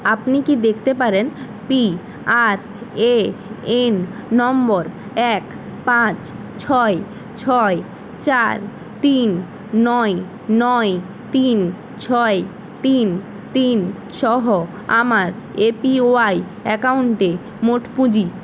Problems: constant background noise